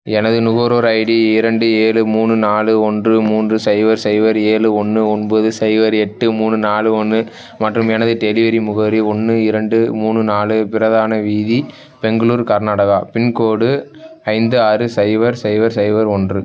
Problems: background conversations at intervals